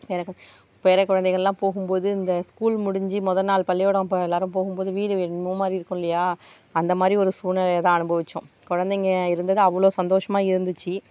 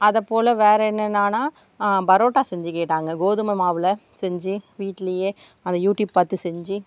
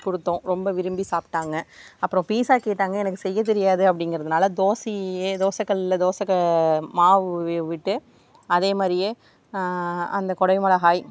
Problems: background sounds at intervals